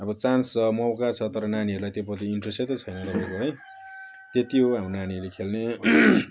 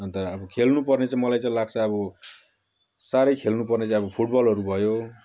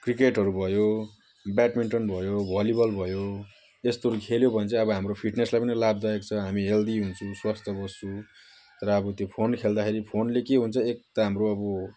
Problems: none marked